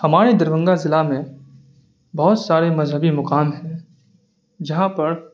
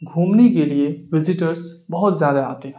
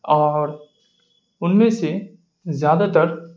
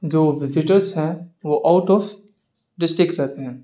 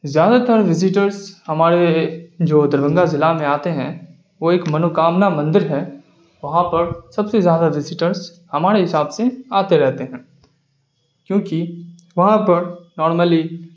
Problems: none marked